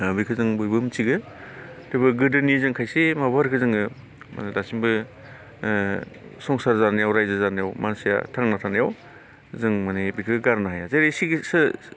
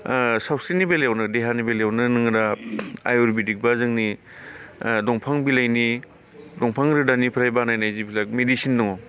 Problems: none marked